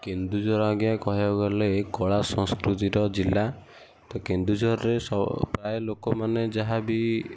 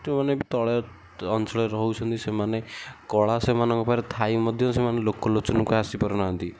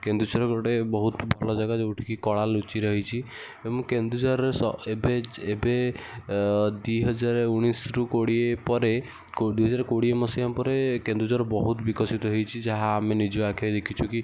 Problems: none marked